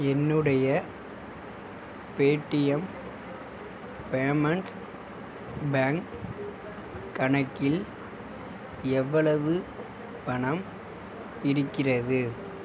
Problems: constant background noise